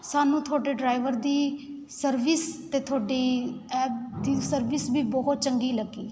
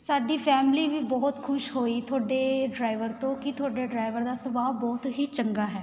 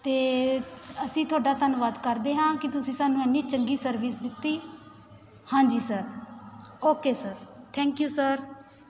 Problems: constant background noise, continuous background conversations